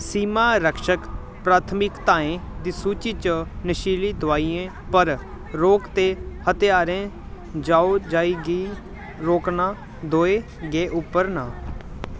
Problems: constant background noise